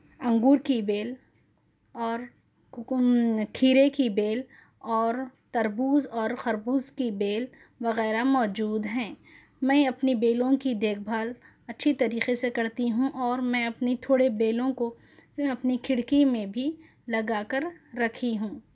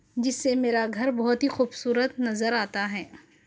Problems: background sounds at intervals